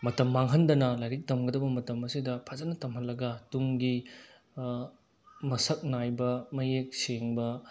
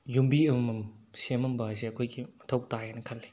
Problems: background sounds at intervals